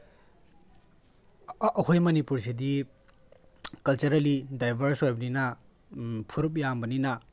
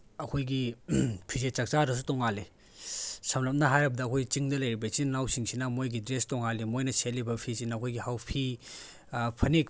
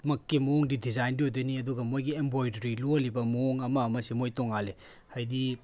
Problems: none marked